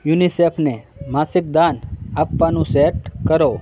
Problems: constant background noise, continuous background conversations